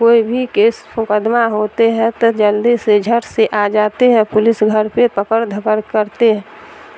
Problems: constant background noise